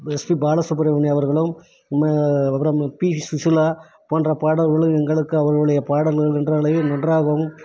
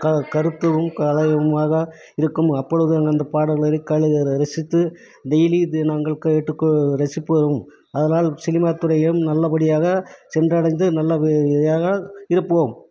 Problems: none marked